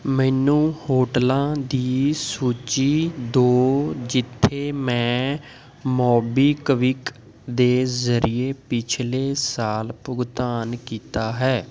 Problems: background sounds at intervals